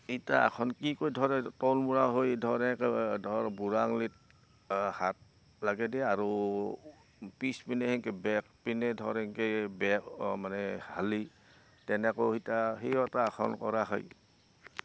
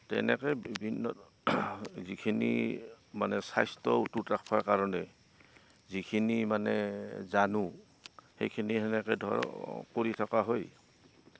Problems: constant background noise